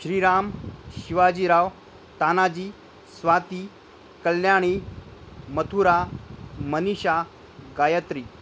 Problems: none marked